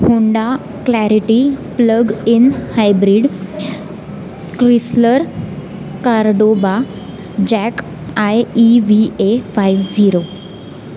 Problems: constant background noise